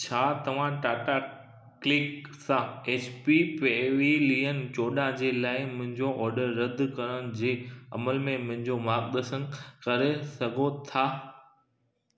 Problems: echo